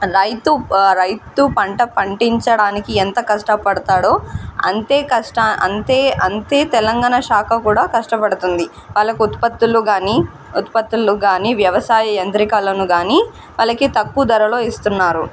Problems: none marked